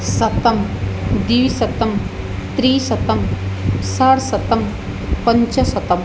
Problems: constant background noise